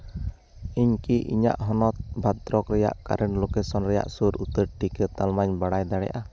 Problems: none marked